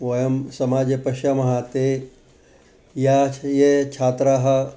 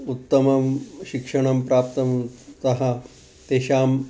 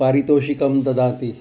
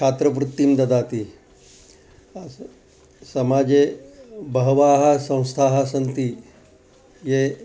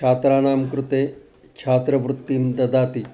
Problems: background sounds at intervals